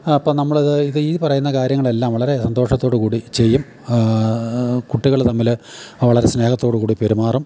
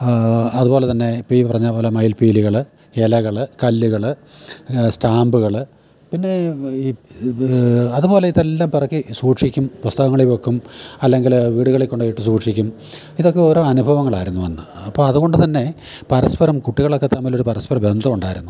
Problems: none marked